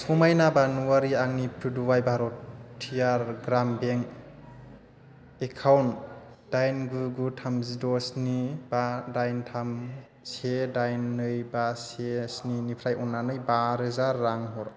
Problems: constant background noise